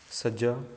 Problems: constant background noise